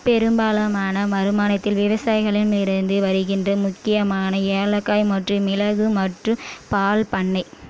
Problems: background sounds at intervals